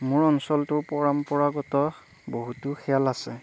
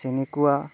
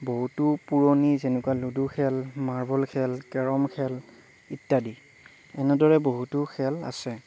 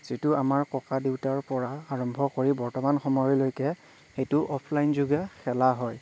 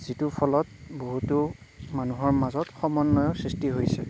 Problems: low volume